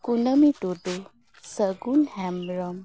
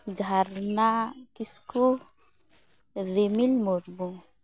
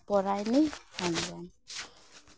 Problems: background sounds at intervals